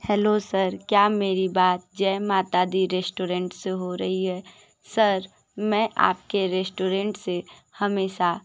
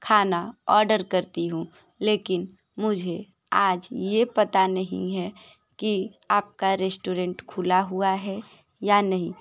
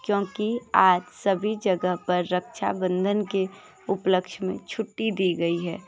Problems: background sounds at intervals, continuous background conversations